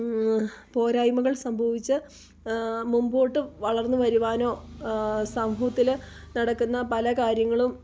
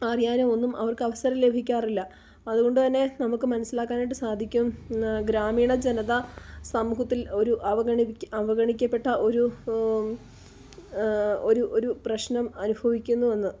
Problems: none marked